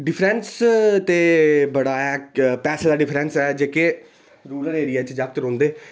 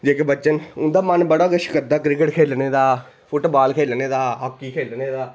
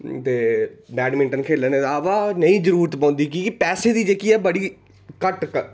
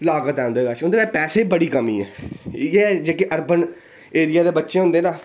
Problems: background sounds at intervals